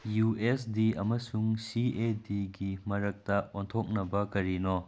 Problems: none marked